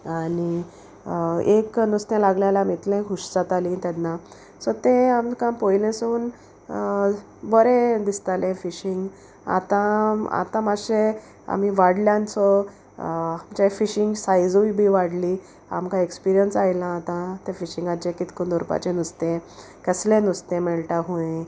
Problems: constant background noise